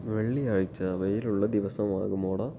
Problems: low volume